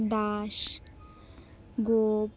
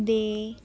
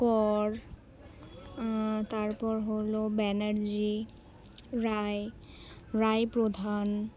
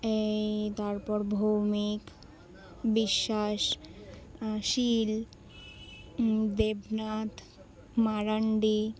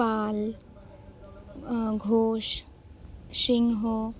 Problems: constant background noise, continuous background conversations